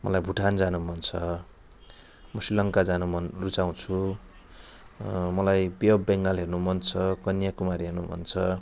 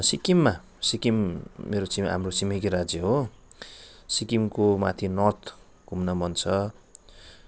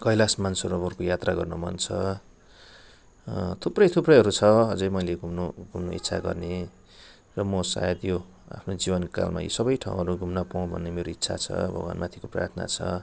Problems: none marked